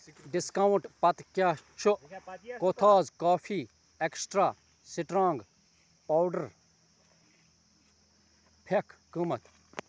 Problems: background conversations at intervals